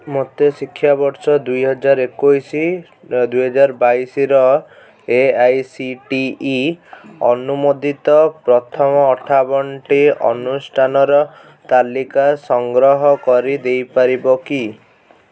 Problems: background conversations at intervals